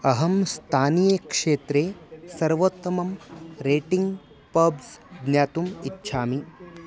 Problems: none marked